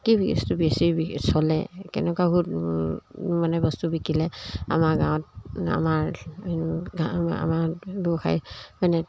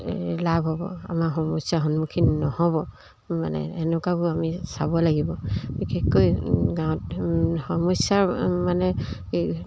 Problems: none marked